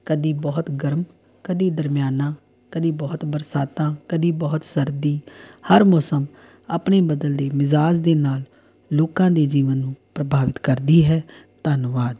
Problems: background sounds at intervals